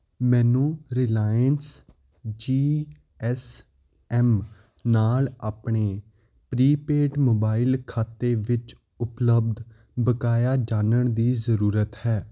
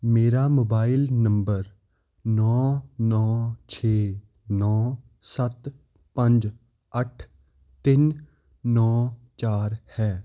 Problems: constant background noise